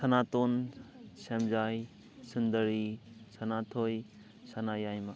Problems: background sounds at intervals, background conversations at intervals